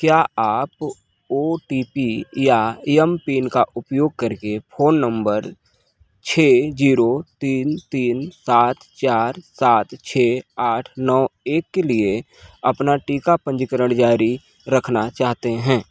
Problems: background sounds at intervals